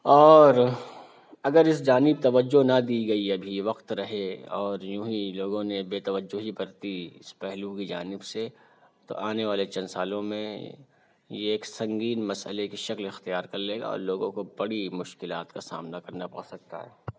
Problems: none marked